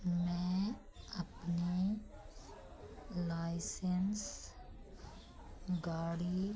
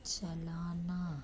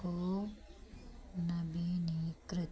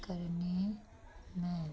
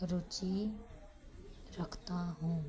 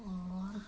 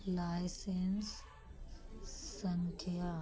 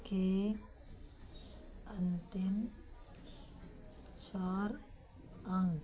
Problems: low volume